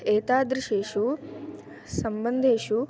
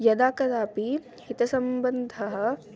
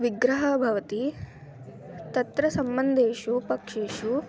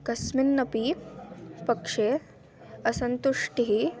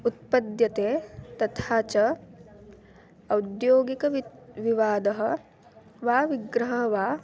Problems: background sounds at intervals